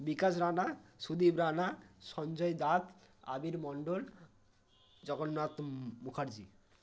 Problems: none marked